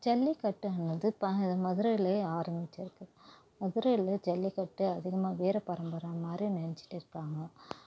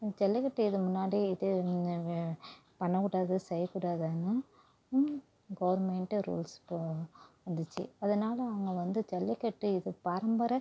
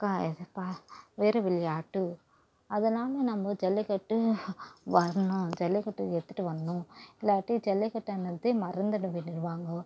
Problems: low volume